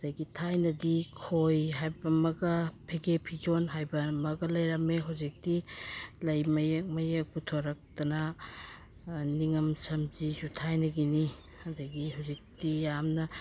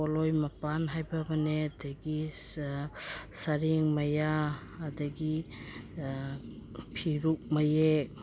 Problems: background sounds at intervals